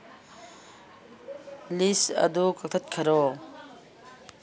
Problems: none marked